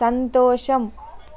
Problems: constant background noise